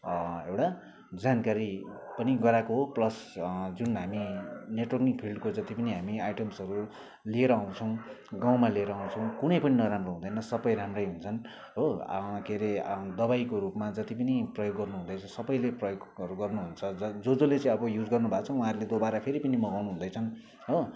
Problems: constant background noise